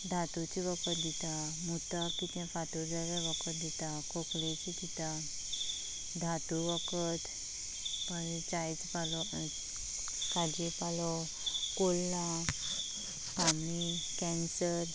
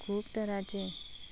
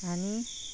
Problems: constant background noise, low volume